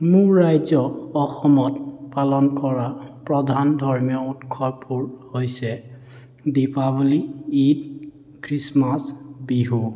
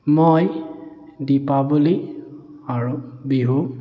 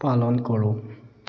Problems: none marked